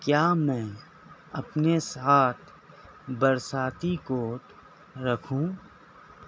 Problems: constant background noise